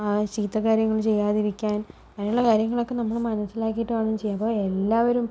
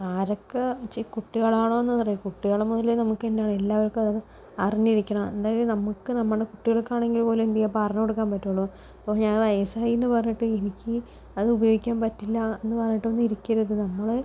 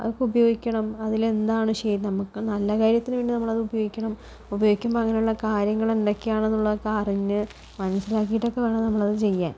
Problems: low volume